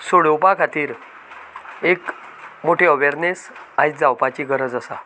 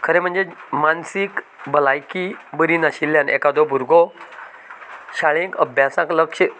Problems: constant background noise